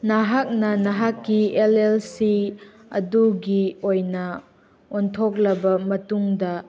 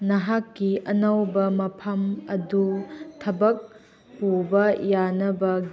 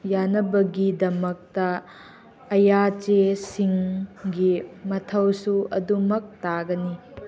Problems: background conversations at intervals